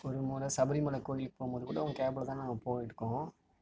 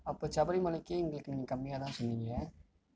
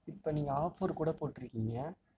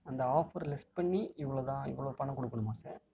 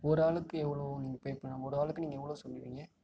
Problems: low volume